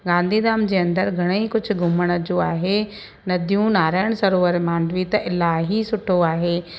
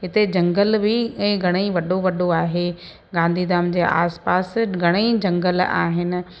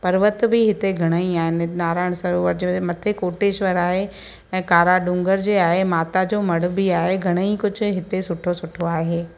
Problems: constant background noise, echo